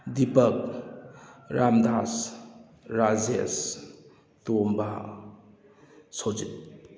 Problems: none marked